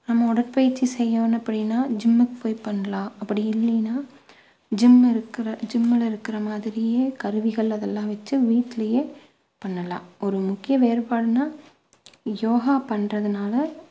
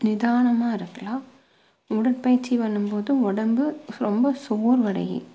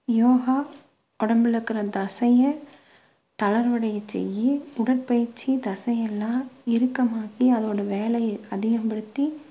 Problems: low volume